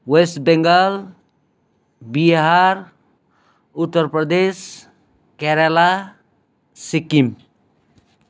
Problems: none marked